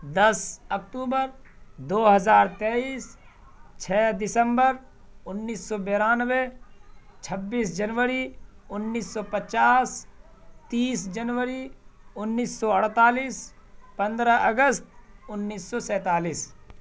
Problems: none marked